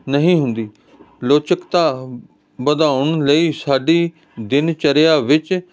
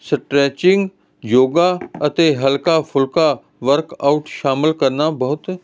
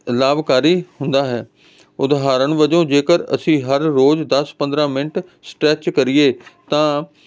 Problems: constant background noise